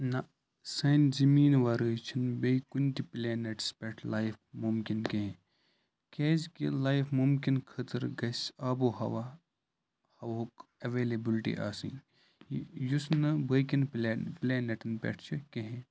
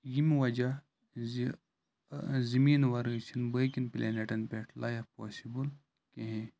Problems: none marked